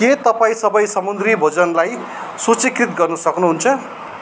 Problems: background sounds at intervals